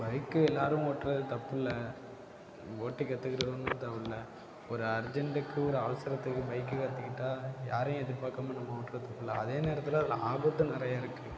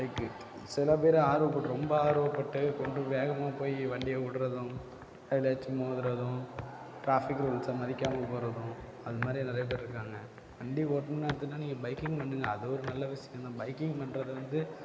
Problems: background sounds at intervals, low volume